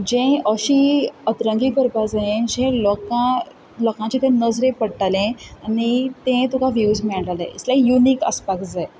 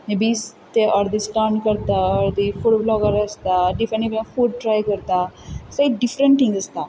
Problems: none marked